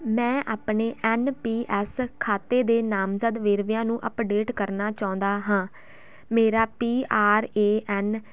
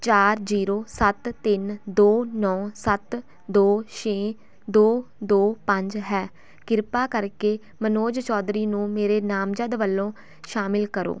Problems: none marked